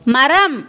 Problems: constant background noise